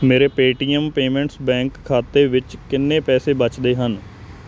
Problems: constant background noise